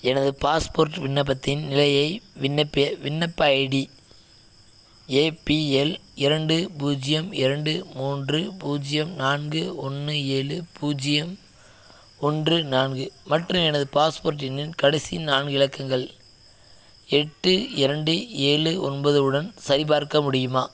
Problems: none marked